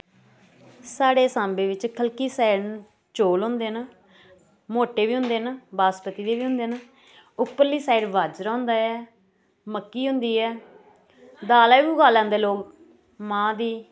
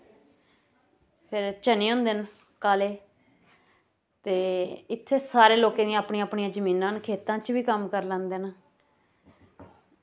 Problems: constant background noise